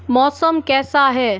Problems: constant background noise